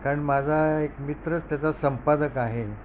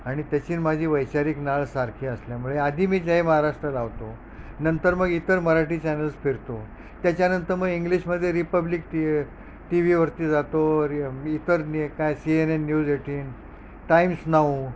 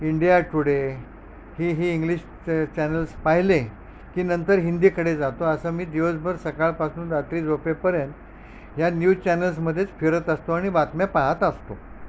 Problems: none marked